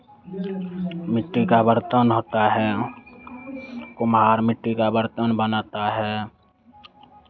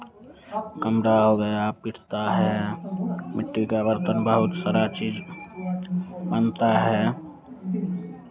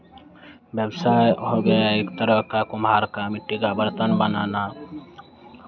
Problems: none marked